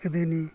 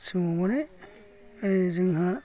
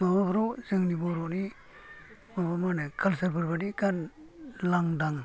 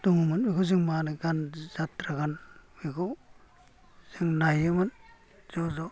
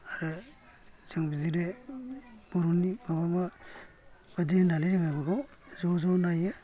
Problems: low volume